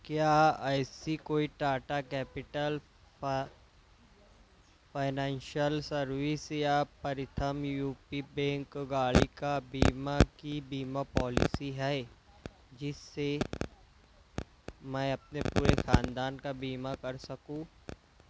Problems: constant background noise, low volume